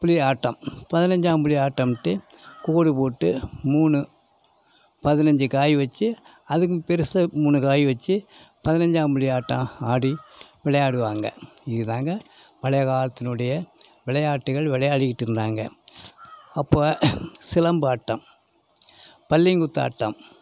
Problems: background sounds at intervals